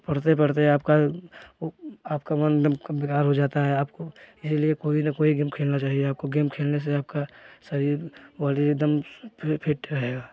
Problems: background sounds at intervals, continuous background conversations